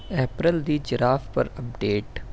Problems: constant background noise